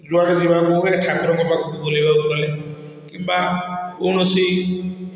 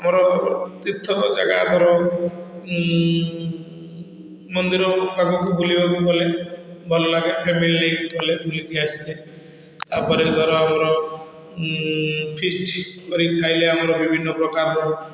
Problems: constant background noise, echo